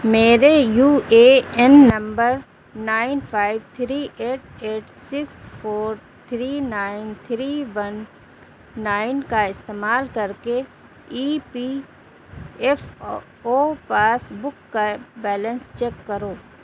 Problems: none marked